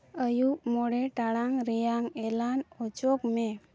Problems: background sounds at intervals